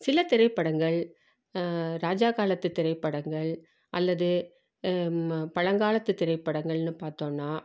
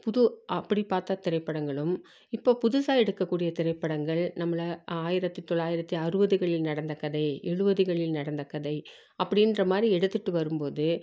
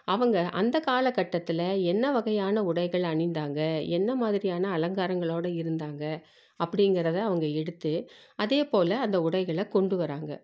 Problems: none marked